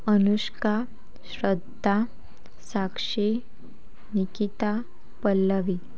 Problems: none marked